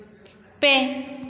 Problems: background sounds at intervals, echo